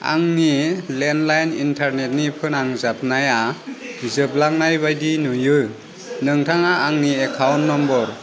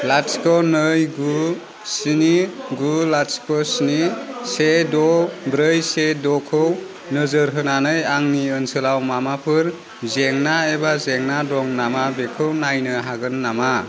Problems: constant background noise